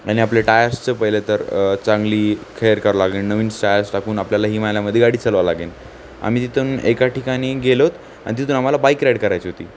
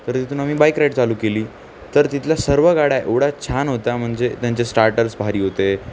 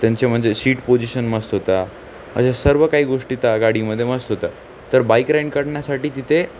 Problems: none marked